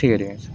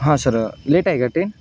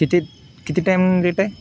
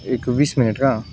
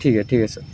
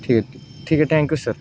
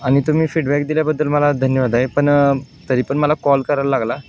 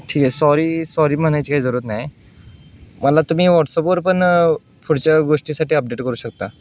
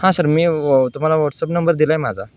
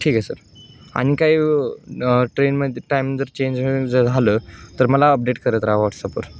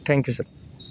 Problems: constant background noise